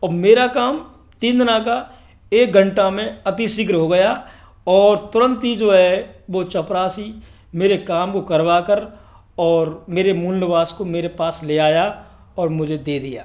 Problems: none marked